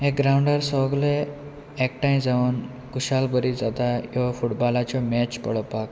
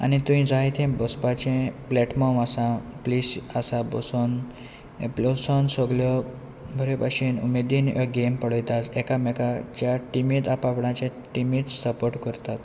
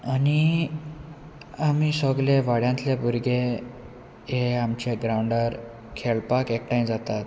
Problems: none marked